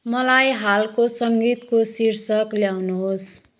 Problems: background sounds at intervals